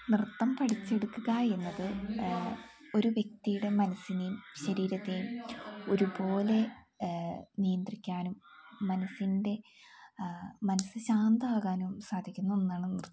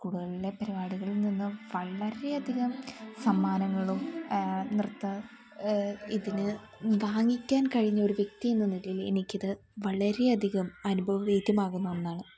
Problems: background sounds at intervals